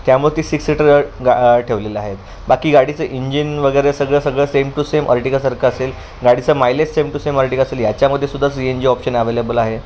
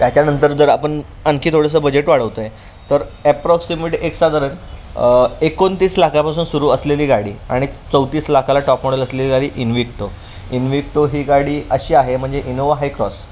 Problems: constant background noise, background conversations at intervals